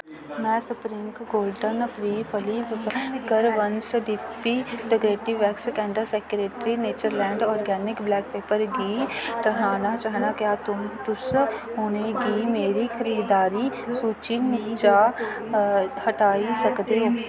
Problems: constant background noise